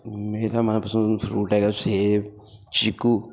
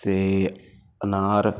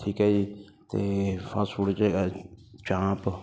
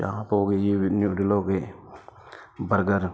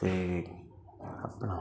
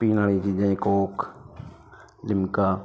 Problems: constant background noise